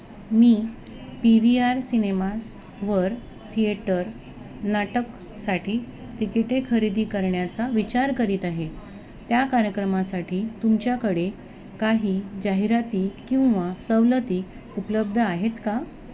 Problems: constant background noise, background conversations at intervals